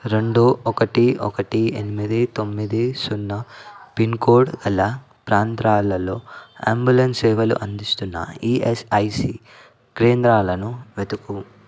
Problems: constant background noise